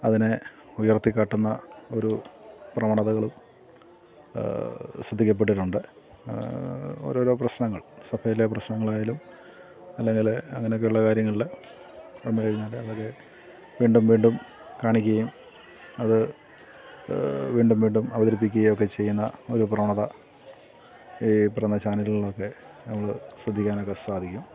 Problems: none marked